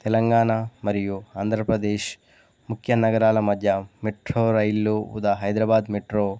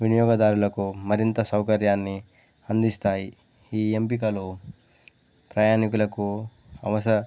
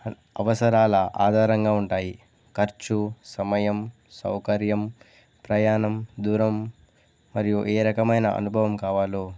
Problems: none marked